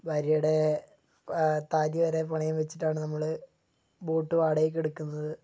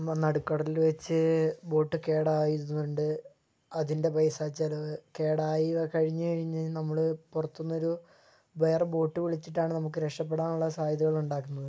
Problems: low volume